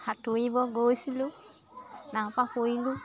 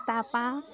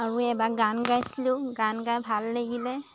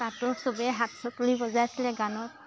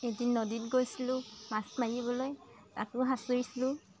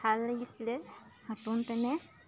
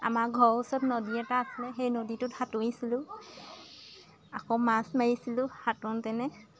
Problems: constant background noise, continuous background conversations